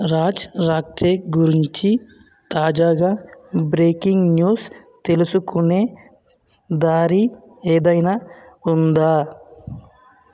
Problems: none marked